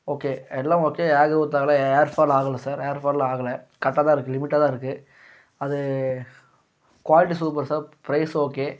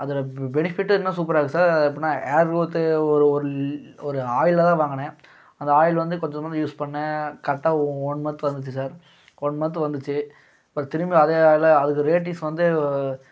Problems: none marked